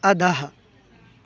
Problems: constant background noise